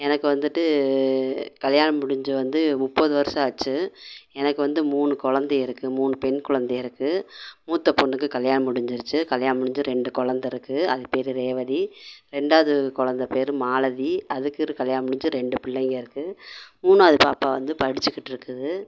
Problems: constant background noise